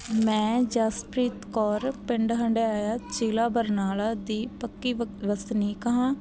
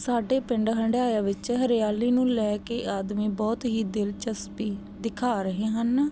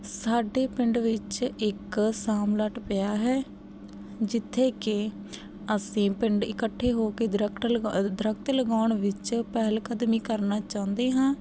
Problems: none marked